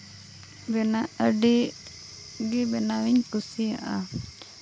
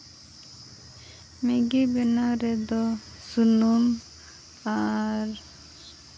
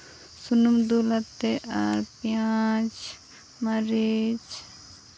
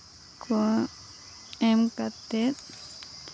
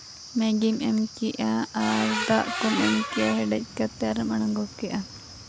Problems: constant background noise, low volume